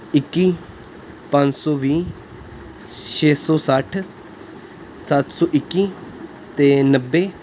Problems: constant background noise